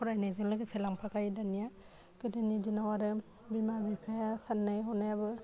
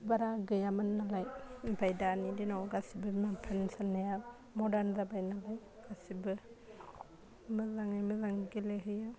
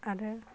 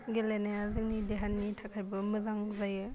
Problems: constant background noise